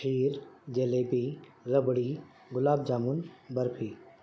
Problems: constant background noise